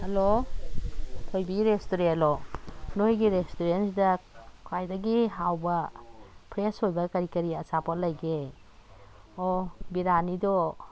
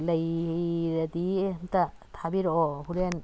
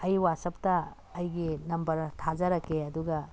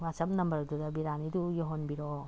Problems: none marked